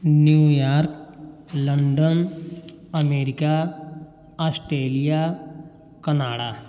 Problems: background sounds at intervals, echo